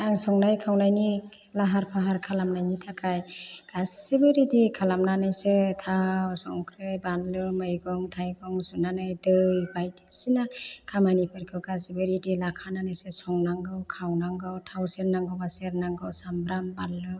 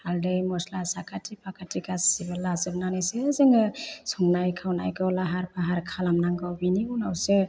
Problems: low volume